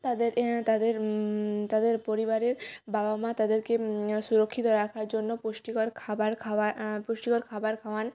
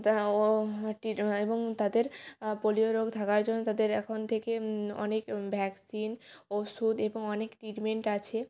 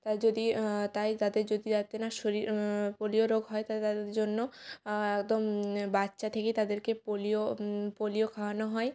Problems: none marked